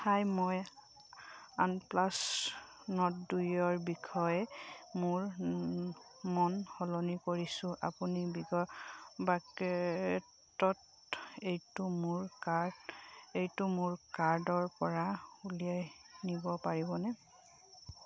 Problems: background sounds at intervals